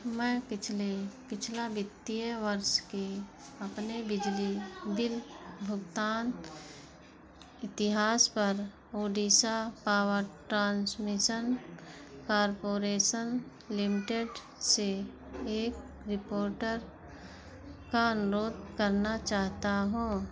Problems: constant background noise